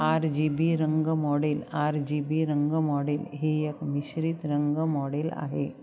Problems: none marked